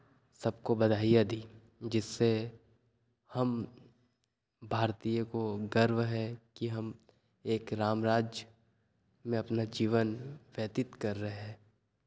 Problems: none marked